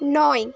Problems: constant background noise